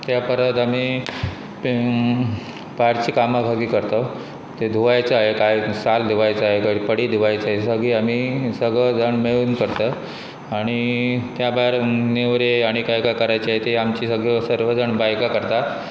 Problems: constant background noise